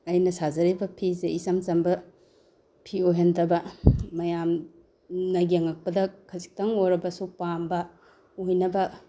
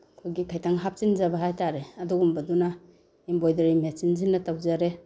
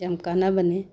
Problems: background sounds at intervals